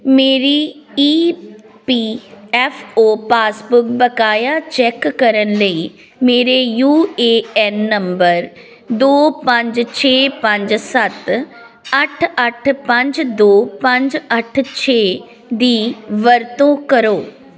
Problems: background sounds at intervals